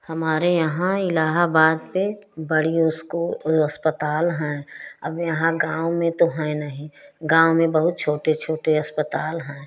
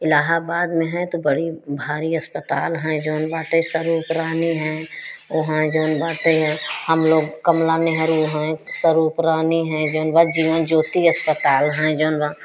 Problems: constant background noise